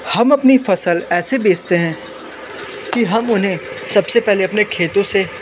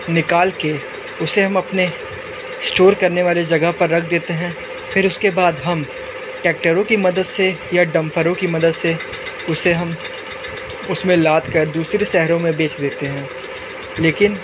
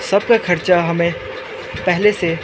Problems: constant background noise